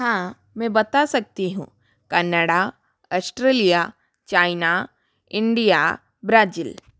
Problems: none marked